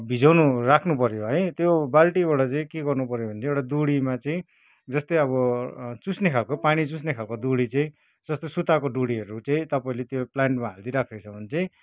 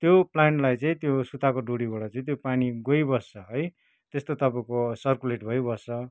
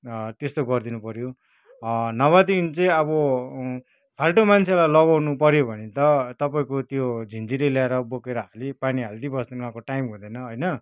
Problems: background conversations at intervals